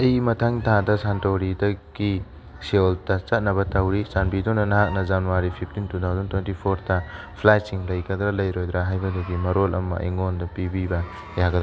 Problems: background sounds at intervals, background conversations at intervals